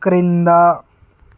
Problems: none marked